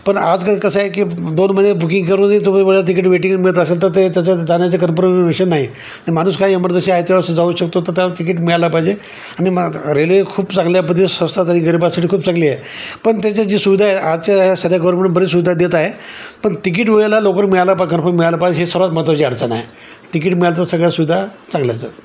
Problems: constant background noise